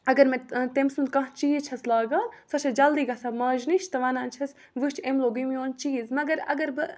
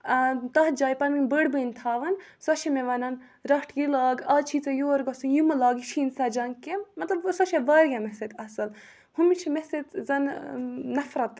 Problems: background sounds at intervals